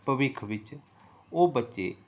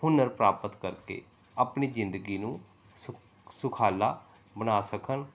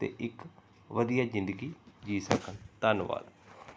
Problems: none marked